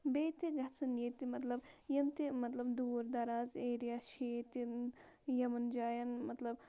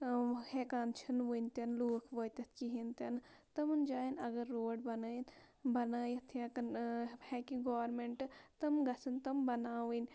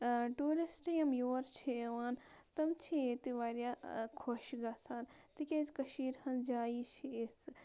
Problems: constant background noise